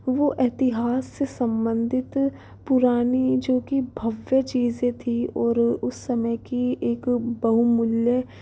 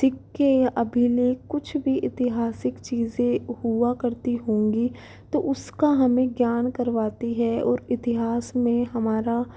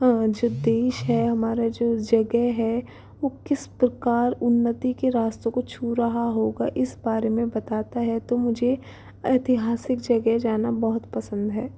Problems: background sounds at intervals